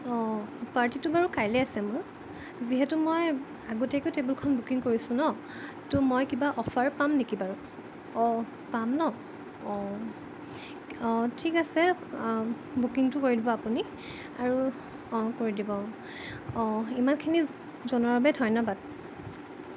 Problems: constant background noise